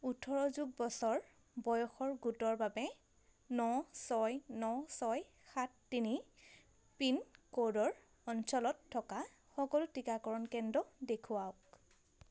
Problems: constant background noise